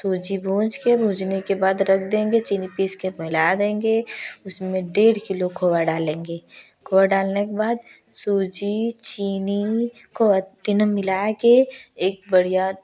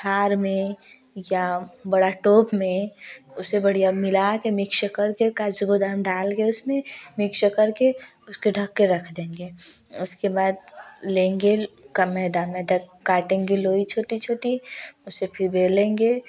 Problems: none marked